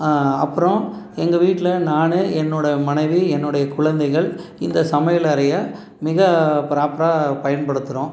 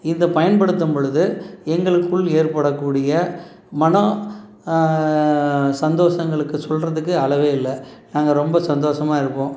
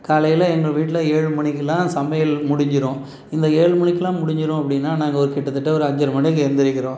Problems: none marked